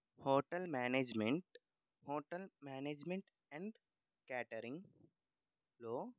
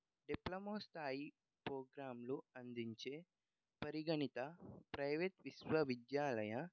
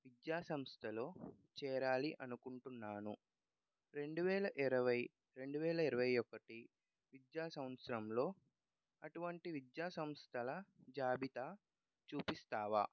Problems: low volume